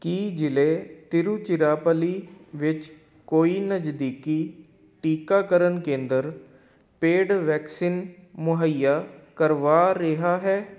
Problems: none marked